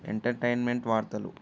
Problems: none marked